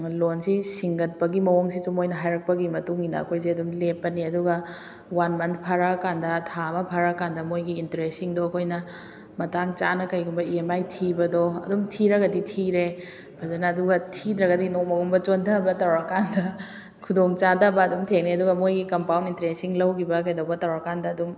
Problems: background sounds at intervals